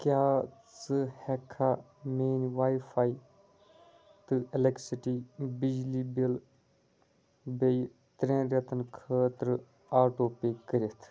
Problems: low volume